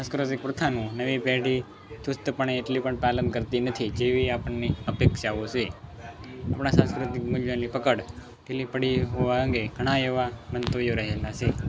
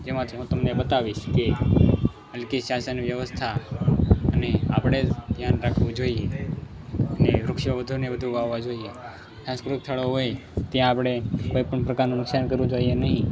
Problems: background sounds at intervals, background conversations at intervals